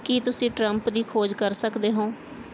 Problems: none marked